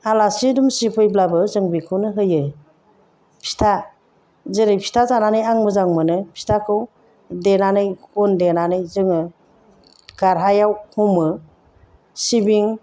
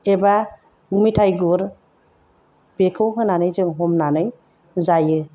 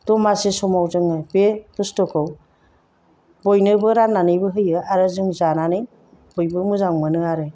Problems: none marked